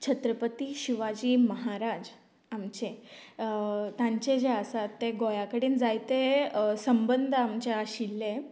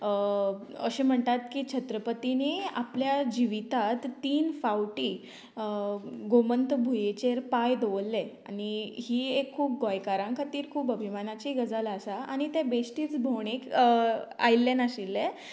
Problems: none marked